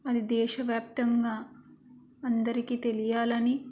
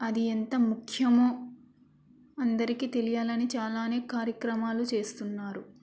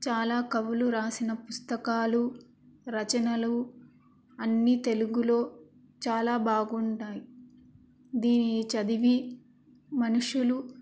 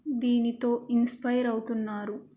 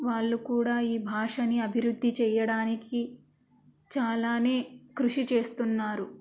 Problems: constant background noise